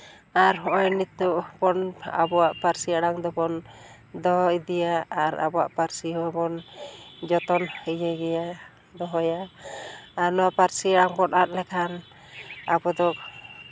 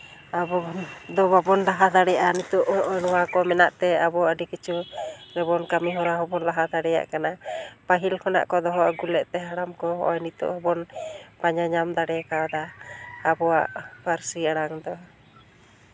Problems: none marked